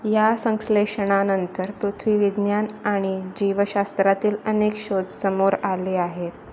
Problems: constant background noise